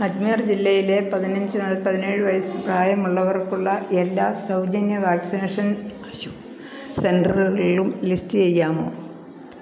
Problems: background conversations at intervals